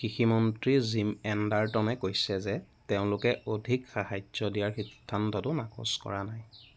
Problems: background sounds at intervals